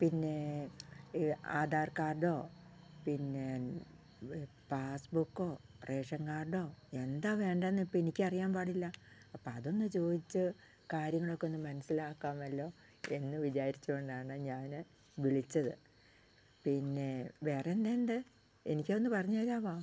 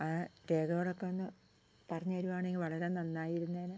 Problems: low volume